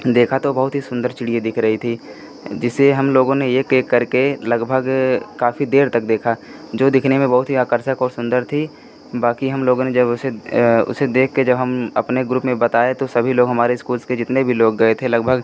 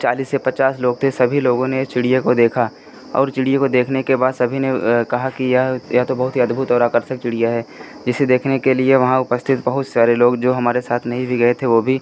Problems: constant background noise